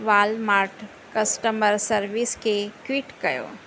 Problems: none marked